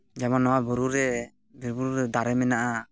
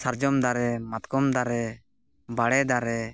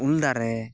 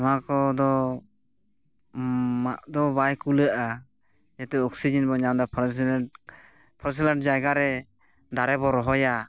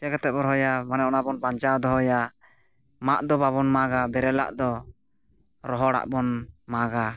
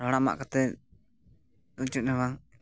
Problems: background sounds at intervals, background conversations at intervals